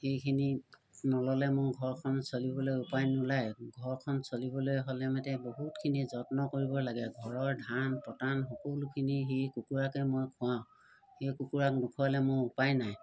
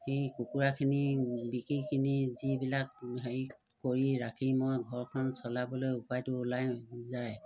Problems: constant background noise